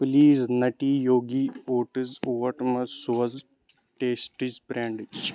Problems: constant background noise